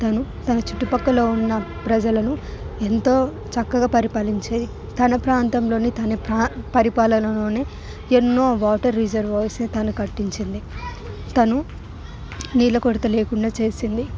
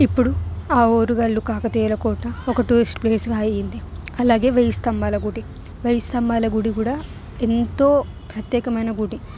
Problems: background sounds at intervals